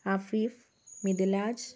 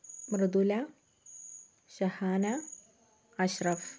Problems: low volume